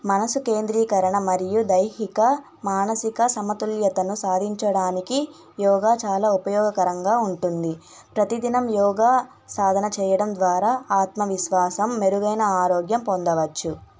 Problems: none marked